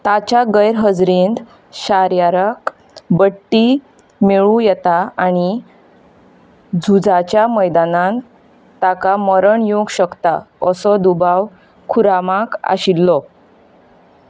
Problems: constant background noise